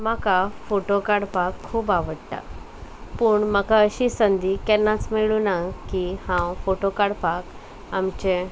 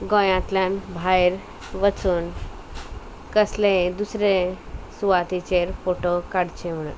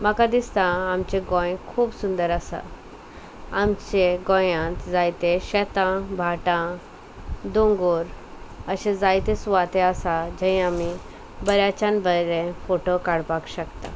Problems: constant background noise